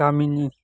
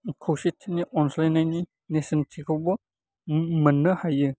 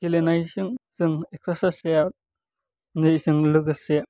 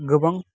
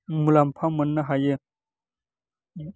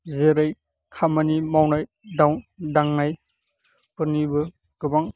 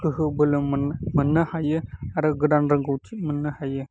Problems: constant background noise